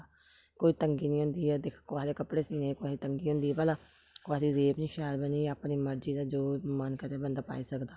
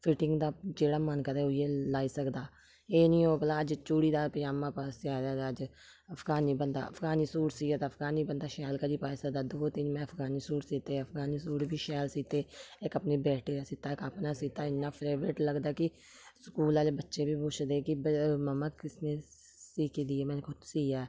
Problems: low volume